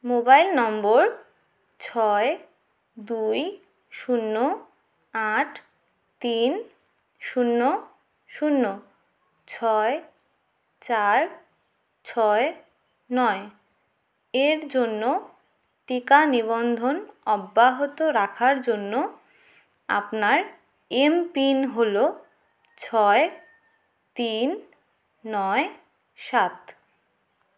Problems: none marked